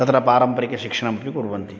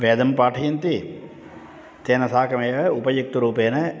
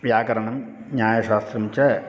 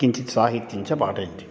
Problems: constant background noise